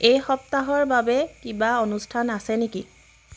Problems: background sounds at intervals